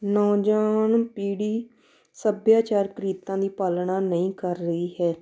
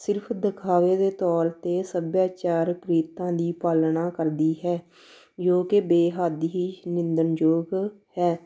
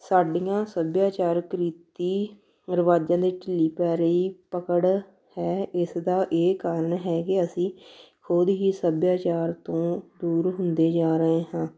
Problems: none marked